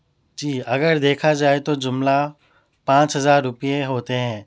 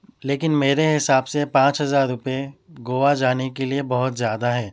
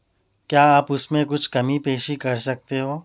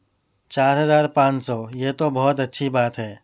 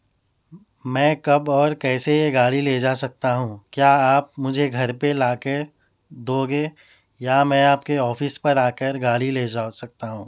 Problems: none marked